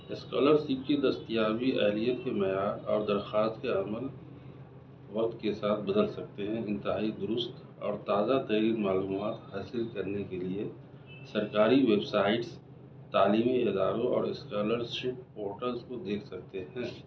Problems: constant background noise